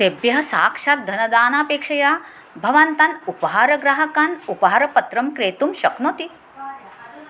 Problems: constant background noise, background conversations at intervals